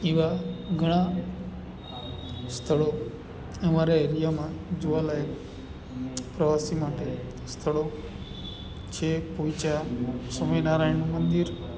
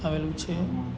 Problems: constant background noise